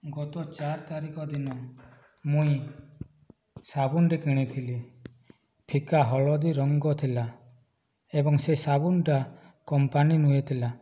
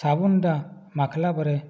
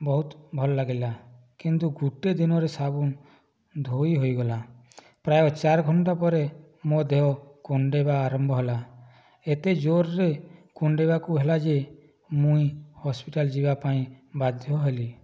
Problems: low volume